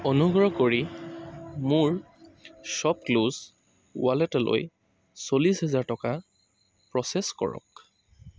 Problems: constant background noise